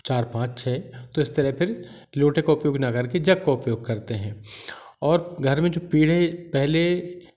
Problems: constant background noise